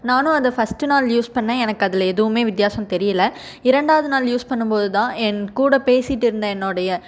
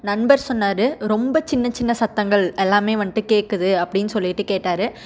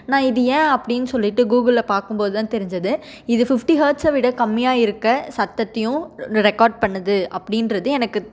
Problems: none marked